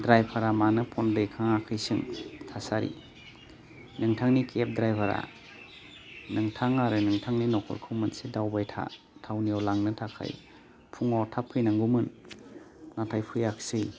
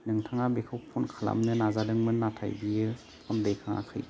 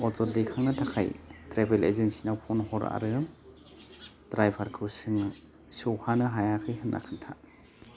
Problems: low volume